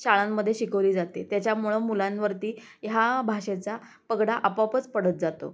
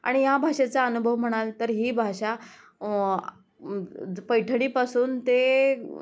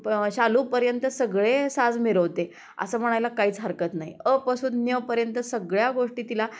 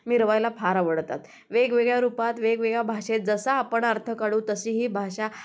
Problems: none marked